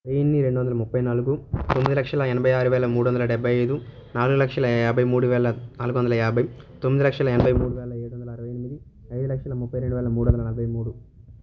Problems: none marked